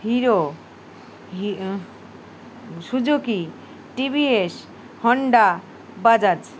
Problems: constant background noise